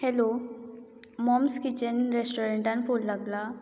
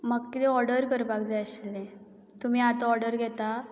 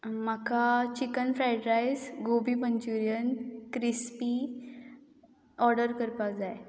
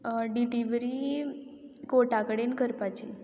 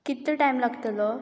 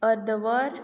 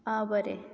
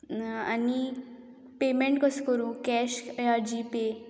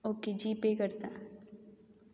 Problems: background conversations at intervals